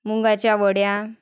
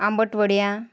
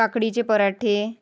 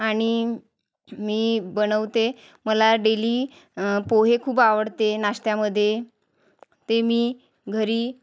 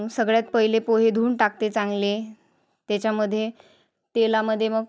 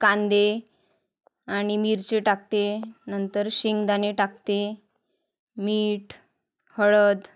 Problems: background sounds at intervals, background conversations at intervals